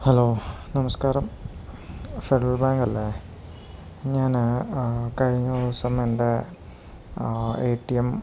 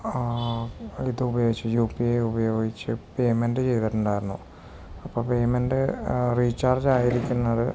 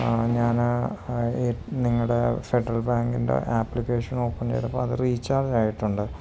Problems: none marked